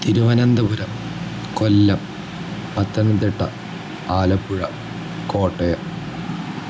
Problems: none marked